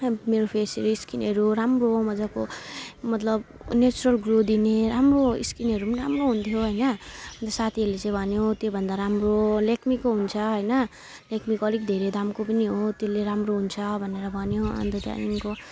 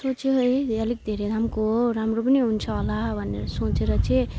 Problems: background sounds at intervals